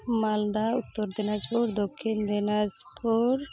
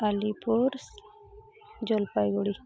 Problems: background sounds at intervals, background conversations at intervals